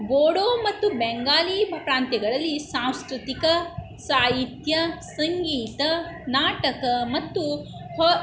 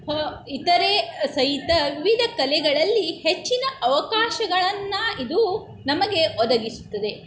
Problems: background sounds at intervals